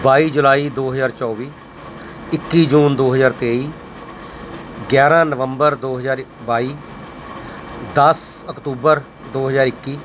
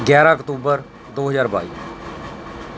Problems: constant background noise